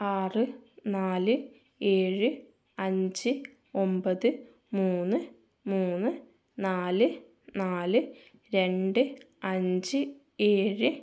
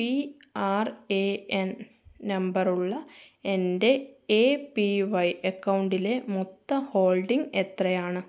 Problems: none marked